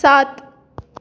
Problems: none marked